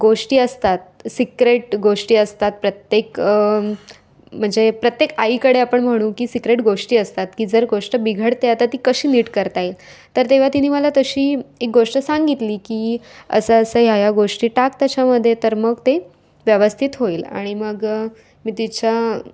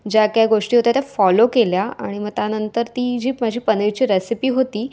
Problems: constant background noise, background conversations at intervals